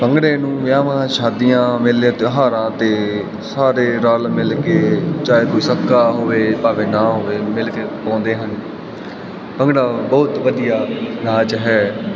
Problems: continuous background conversations